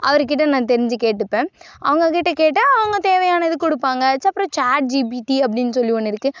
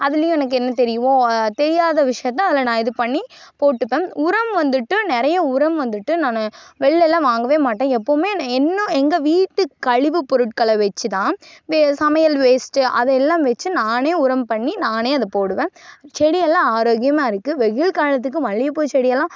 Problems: none marked